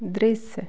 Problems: none marked